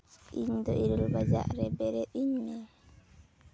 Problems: none marked